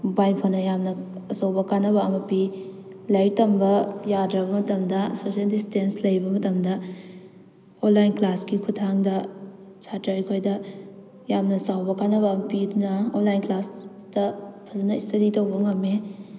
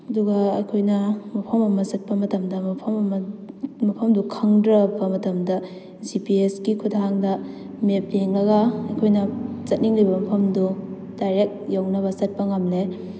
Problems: none marked